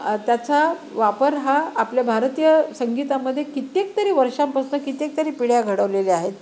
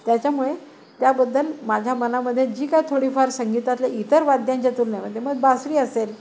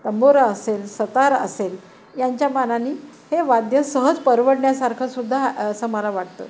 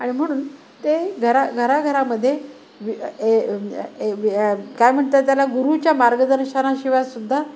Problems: none marked